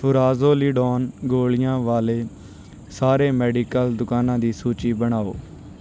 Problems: background sounds at intervals